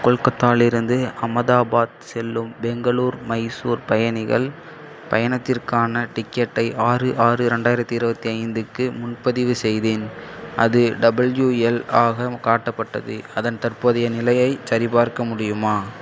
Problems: none marked